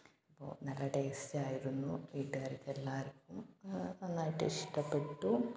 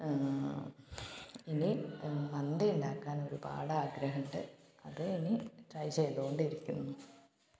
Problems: background sounds at intervals, low volume